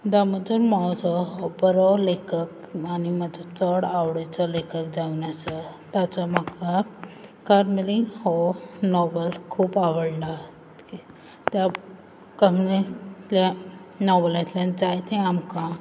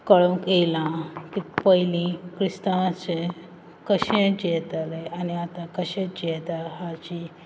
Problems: background sounds at intervals